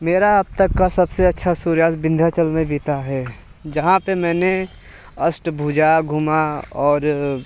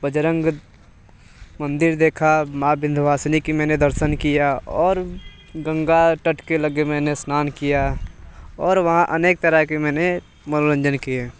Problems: none marked